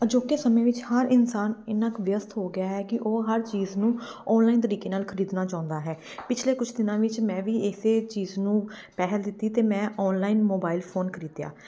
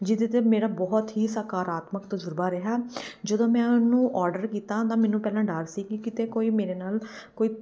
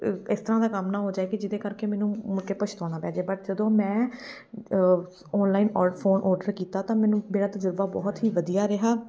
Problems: background sounds at intervals